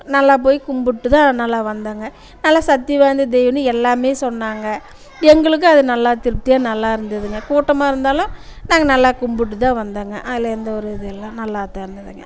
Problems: constant background noise, continuous background conversations